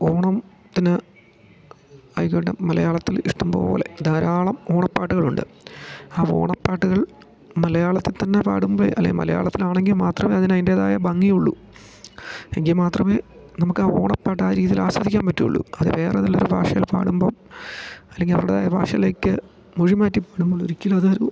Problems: none marked